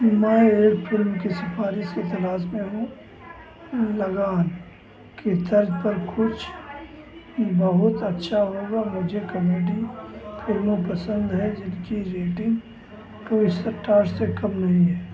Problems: constant background noise, background conversations at intervals